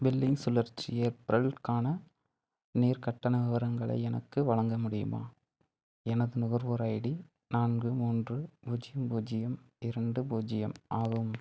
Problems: background sounds at intervals, low volume